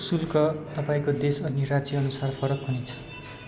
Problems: continuous background conversations